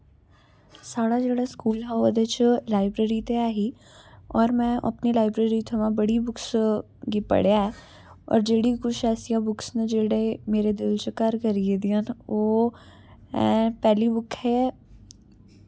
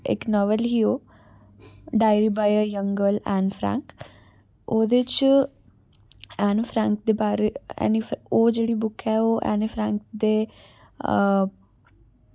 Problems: background sounds at intervals